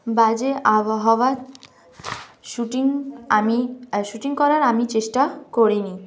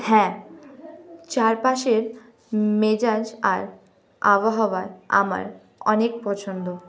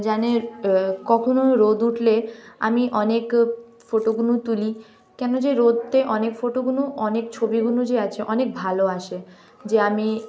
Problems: none marked